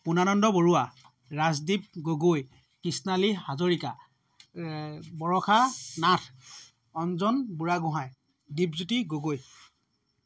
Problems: background sounds at intervals